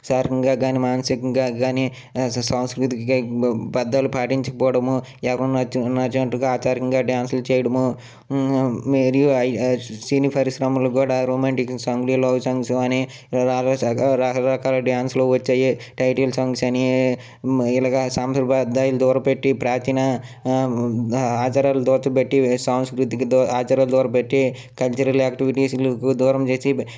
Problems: none marked